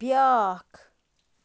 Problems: background sounds at intervals